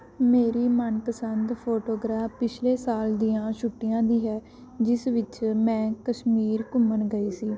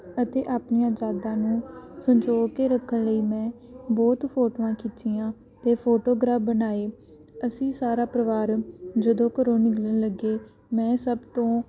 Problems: background sounds at intervals